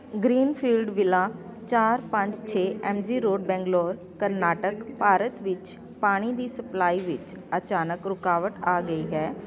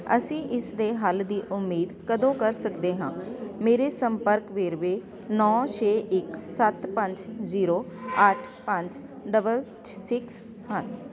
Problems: constant background noise, continuous background conversations